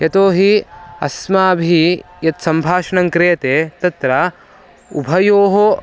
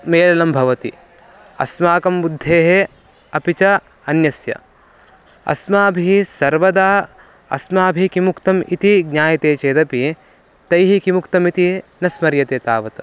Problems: background sounds at intervals